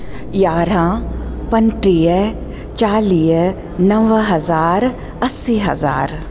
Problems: constant background noise